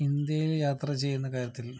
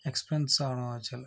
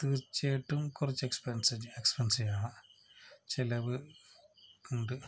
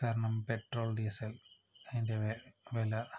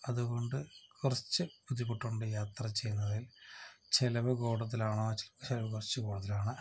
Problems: low volume